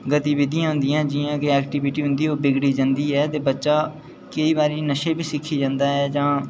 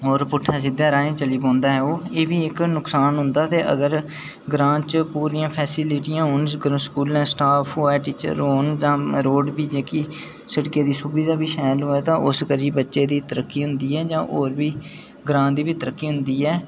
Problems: none marked